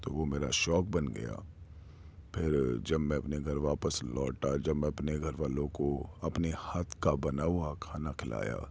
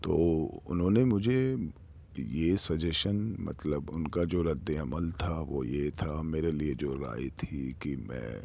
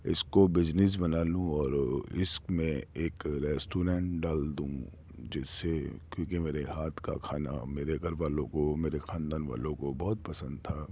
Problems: none marked